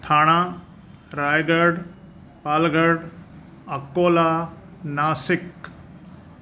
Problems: none marked